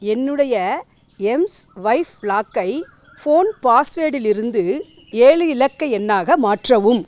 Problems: background sounds at intervals